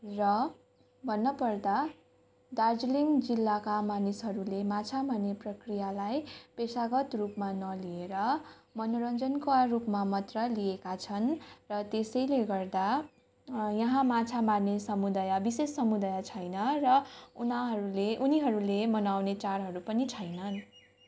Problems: continuous background conversations